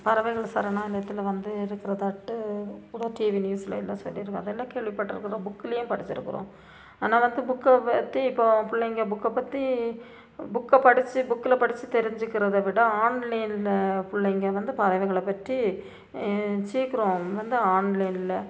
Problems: constant background noise, low volume